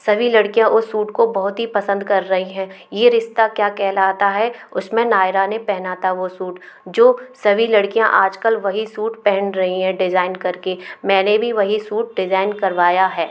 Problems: constant background noise